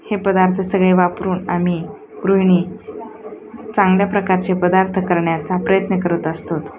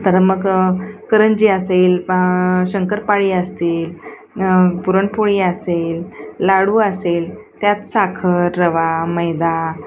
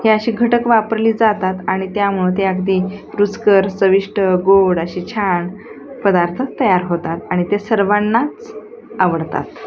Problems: constant background noise, background conversations at intervals